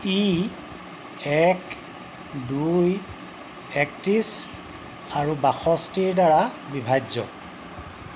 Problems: constant background noise